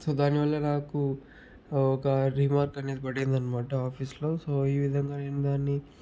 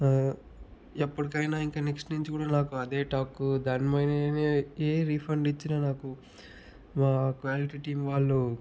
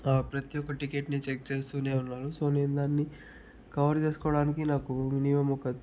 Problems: low volume